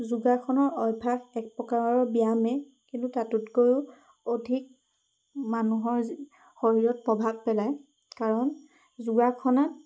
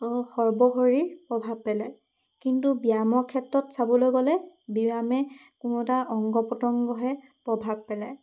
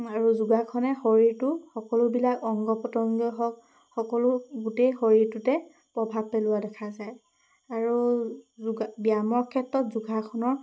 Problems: constant background noise